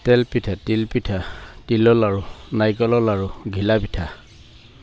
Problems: constant background noise